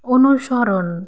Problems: constant background noise